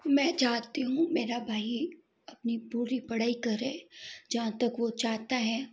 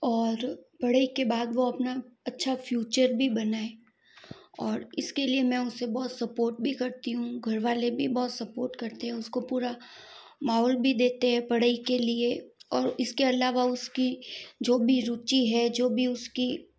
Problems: background sounds at intervals